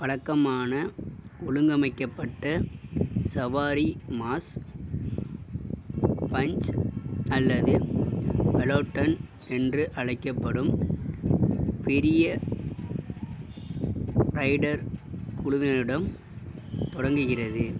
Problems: background sounds at intervals